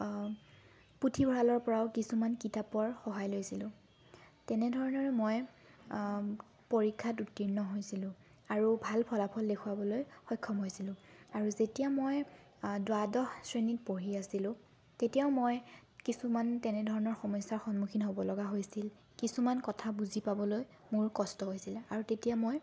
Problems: constant background noise